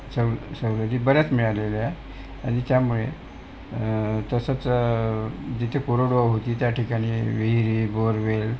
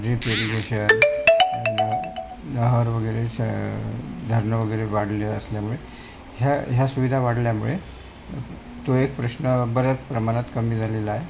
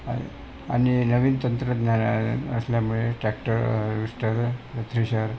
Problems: constant background noise